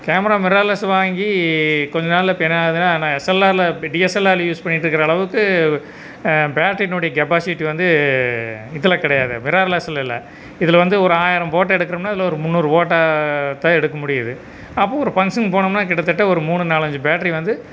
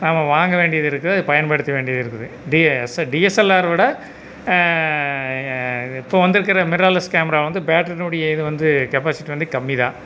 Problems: constant background noise